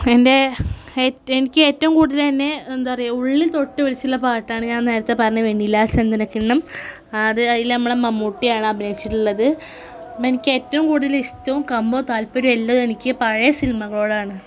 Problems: background sounds at intervals